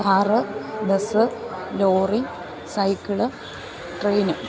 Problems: constant background noise